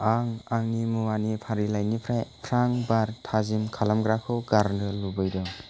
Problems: constant background noise